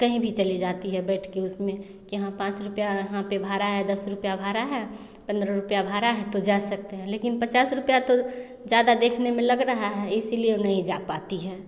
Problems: none marked